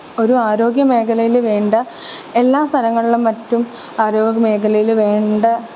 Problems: constant background noise